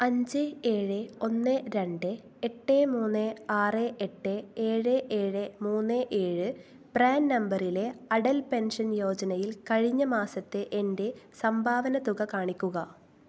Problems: low volume